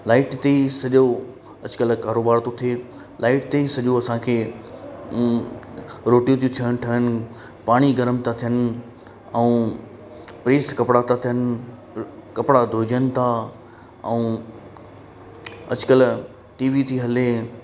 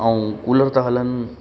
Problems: constant background noise, echo